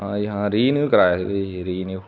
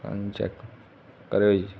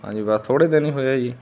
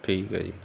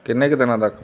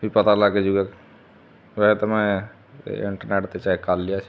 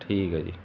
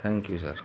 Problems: constant background noise